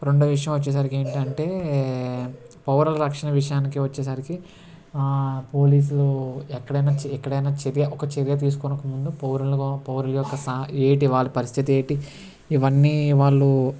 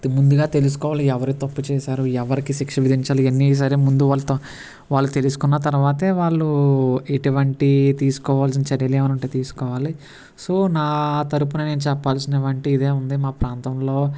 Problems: constant background noise